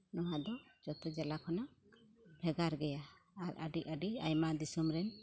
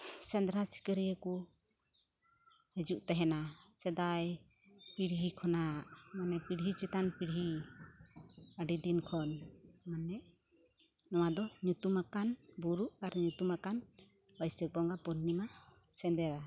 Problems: none marked